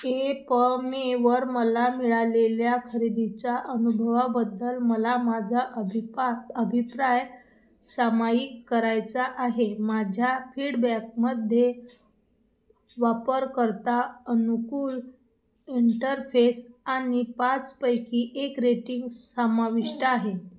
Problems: none marked